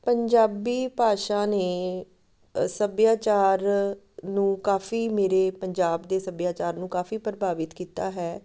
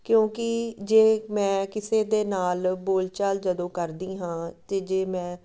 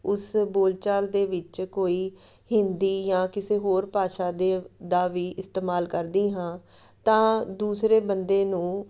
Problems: none marked